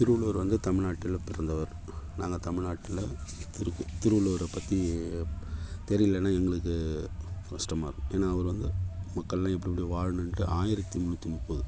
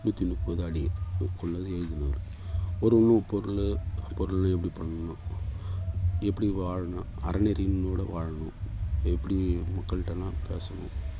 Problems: constant background noise, low volume